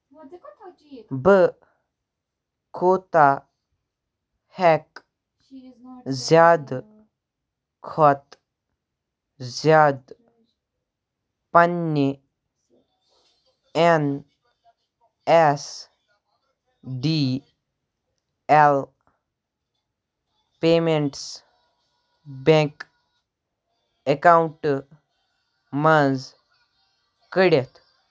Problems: constant background noise, continuous background conversations